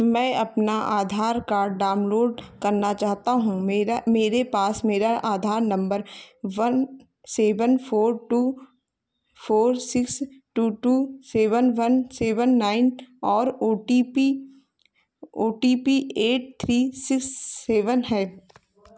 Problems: none marked